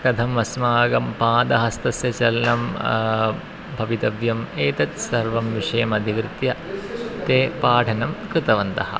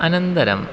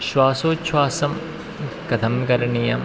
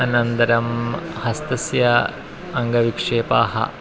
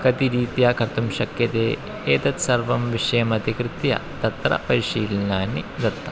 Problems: constant background noise, continuous background conversations